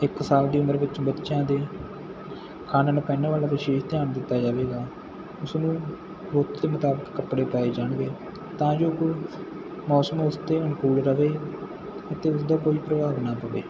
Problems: none marked